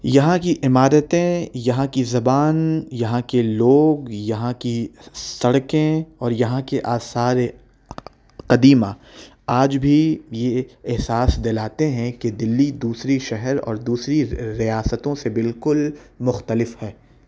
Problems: none marked